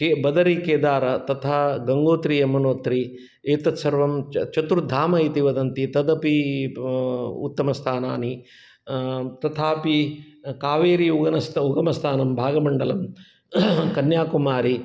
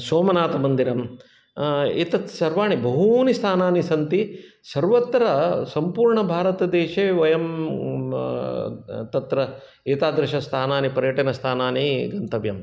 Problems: none marked